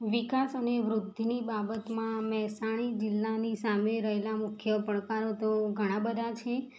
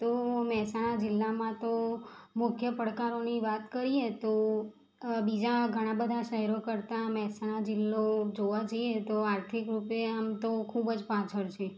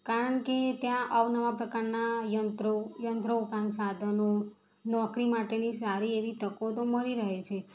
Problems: background sounds at intervals